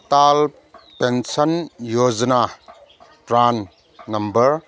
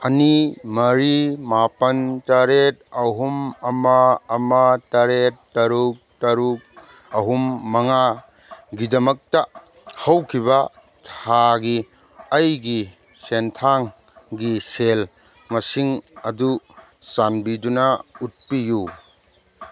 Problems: background sounds at intervals